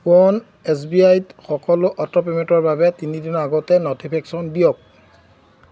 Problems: none marked